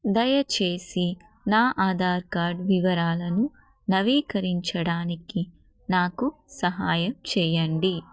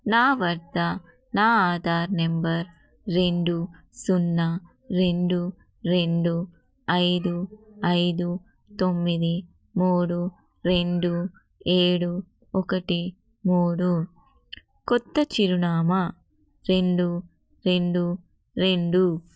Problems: none marked